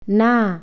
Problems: none marked